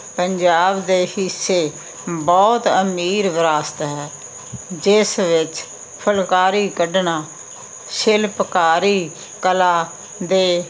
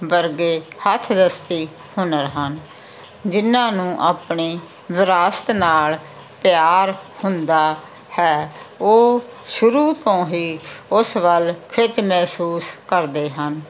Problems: none marked